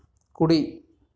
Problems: background sounds at intervals